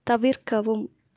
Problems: none marked